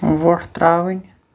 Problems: none marked